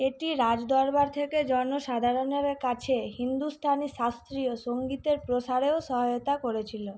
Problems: none marked